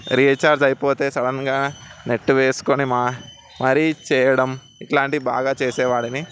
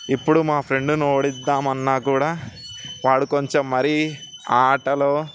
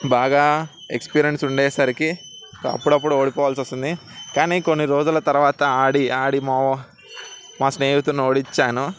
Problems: constant background noise